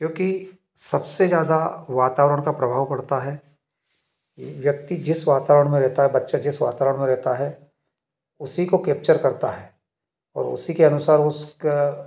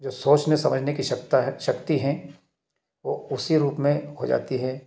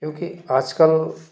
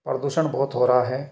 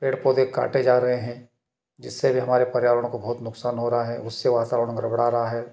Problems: background sounds at intervals